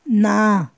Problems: none marked